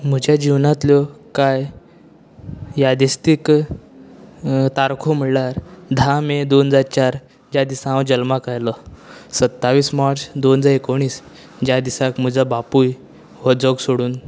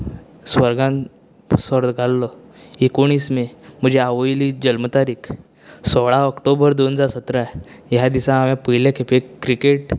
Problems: constant background noise